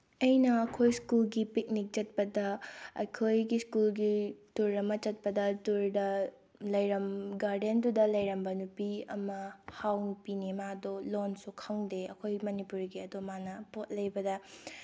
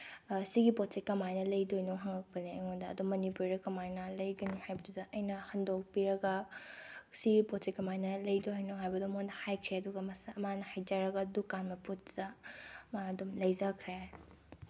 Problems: none marked